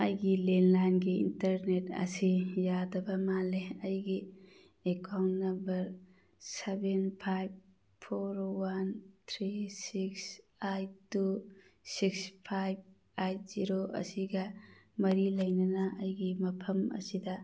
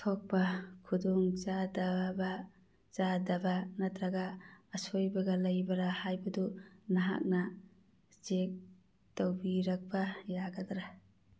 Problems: none marked